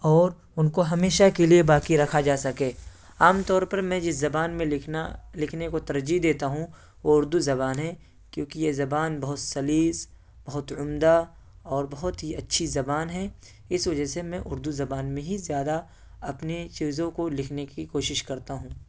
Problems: none marked